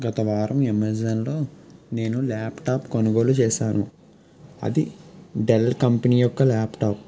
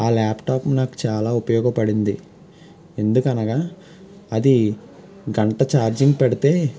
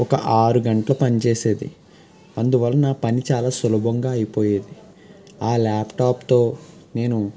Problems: background sounds at intervals